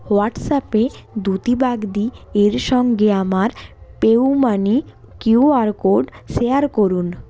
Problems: constant background noise